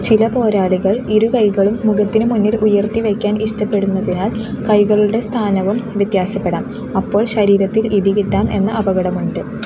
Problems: constant background noise